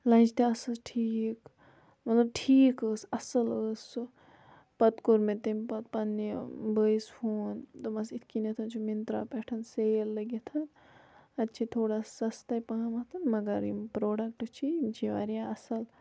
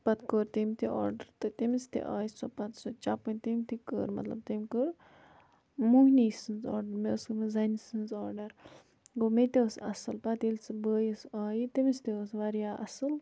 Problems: none marked